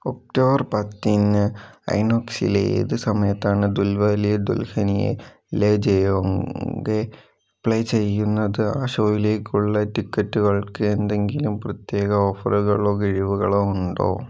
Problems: none marked